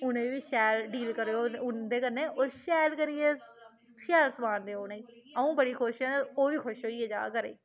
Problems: none marked